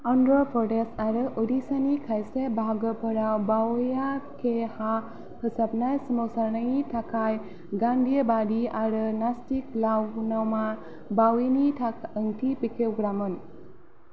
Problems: none marked